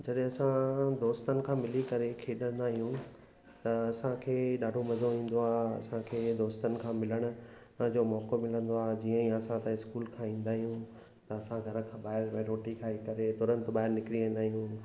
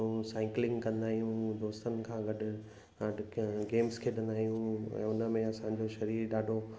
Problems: constant background noise, echo